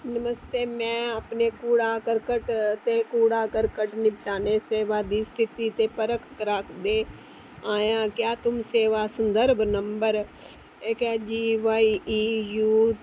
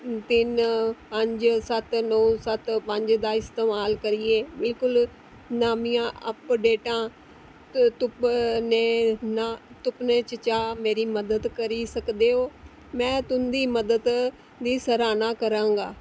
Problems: constant background noise